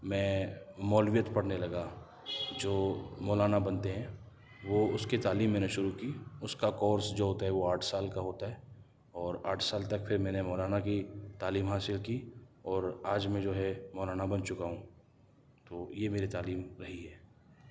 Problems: none marked